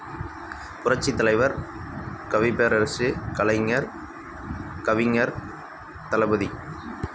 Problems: constant background noise